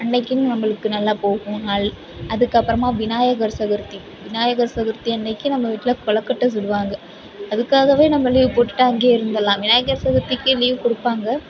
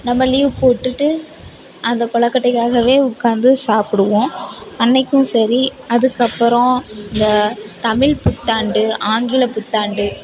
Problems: constant background noise, continuous background conversations